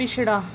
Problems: constant background noise